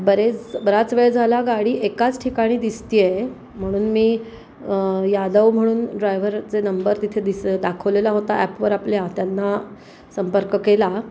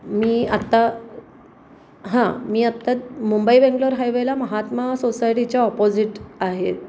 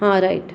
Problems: constant background noise